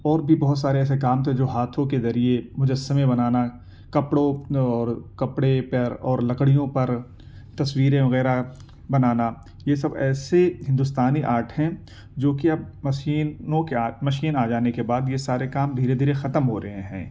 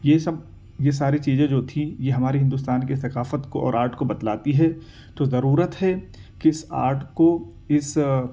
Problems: none marked